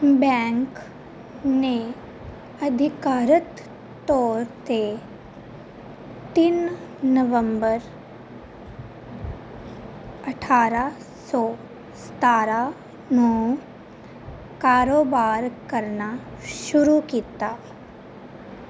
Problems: constant background noise